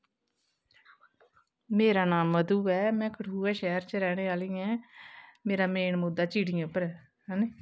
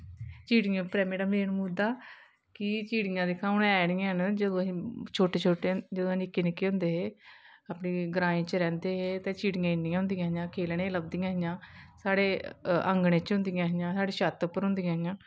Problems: none marked